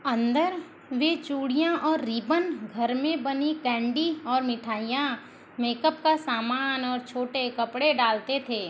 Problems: constant background noise